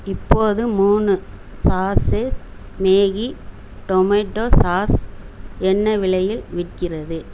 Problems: constant background noise